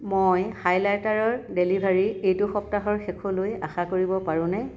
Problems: background sounds at intervals